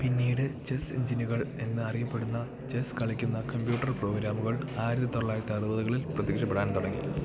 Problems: low volume